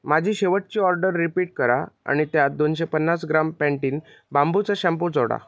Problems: background conversations at intervals